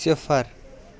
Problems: constant background noise